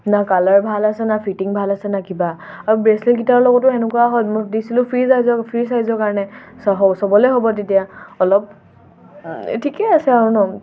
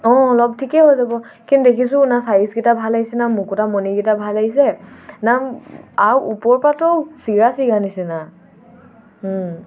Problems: background sounds at intervals, background conversations at intervals